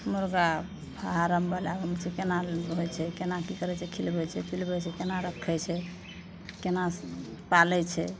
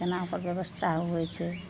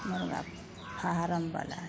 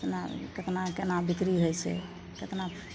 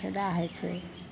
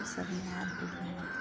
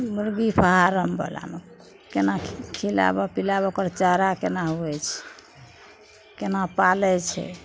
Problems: none marked